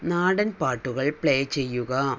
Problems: none marked